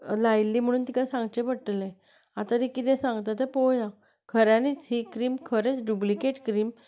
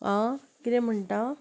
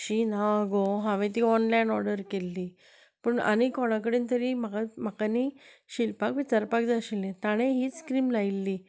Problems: constant background noise